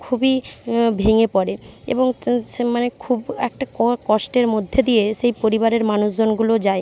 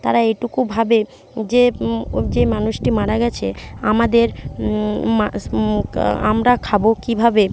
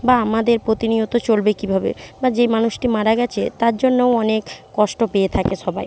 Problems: none marked